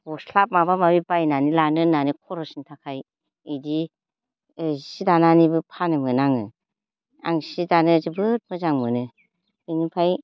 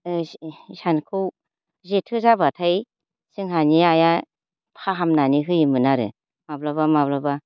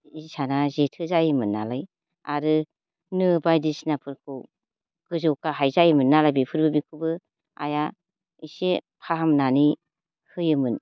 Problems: low volume